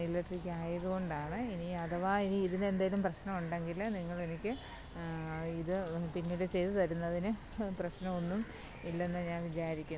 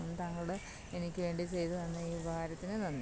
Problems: none marked